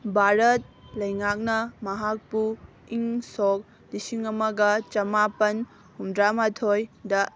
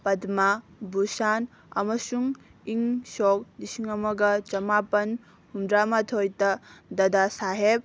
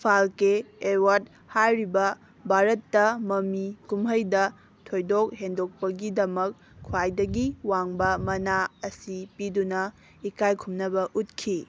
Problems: none marked